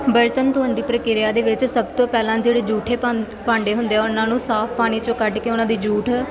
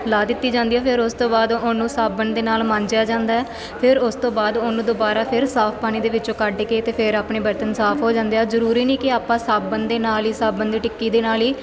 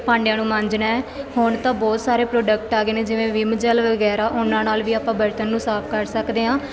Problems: constant background noise